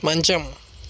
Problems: constant background noise